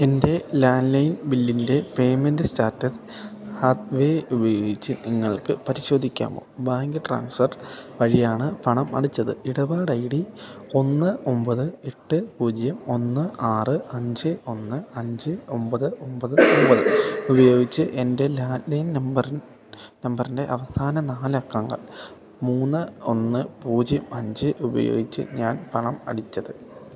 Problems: background sounds at intervals